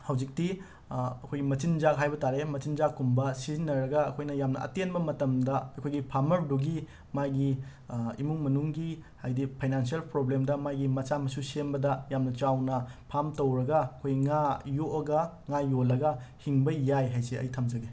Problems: none marked